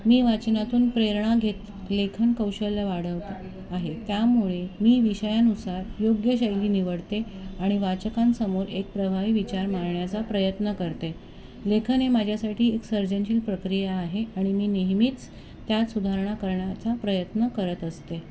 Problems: constant background noise, continuous background conversations